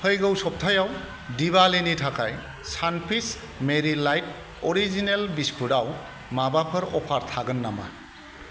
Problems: none marked